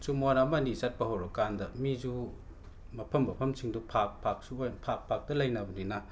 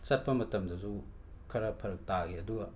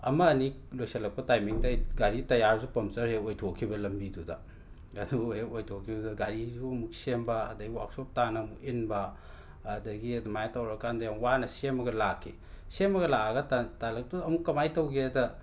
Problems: background sounds at intervals